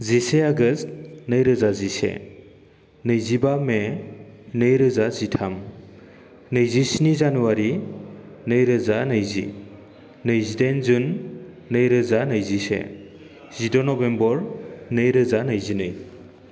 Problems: low volume